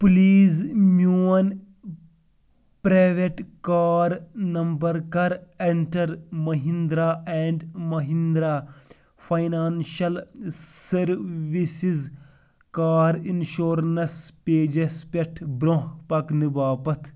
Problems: none marked